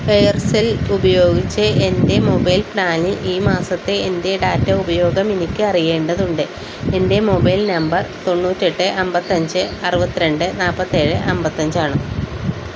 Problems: constant background noise